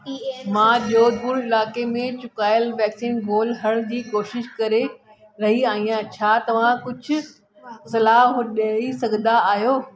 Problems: constant background noise, echo